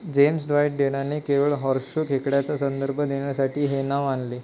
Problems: none marked